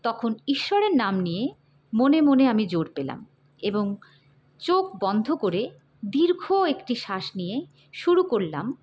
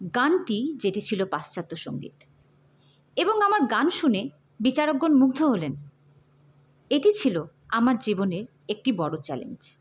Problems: none marked